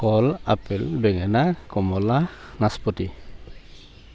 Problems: constant background noise